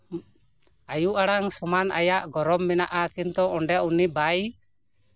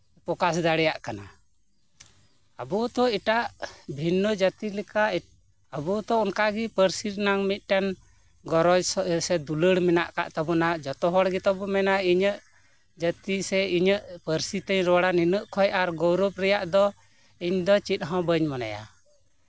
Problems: background sounds at intervals